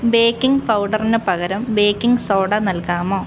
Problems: none marked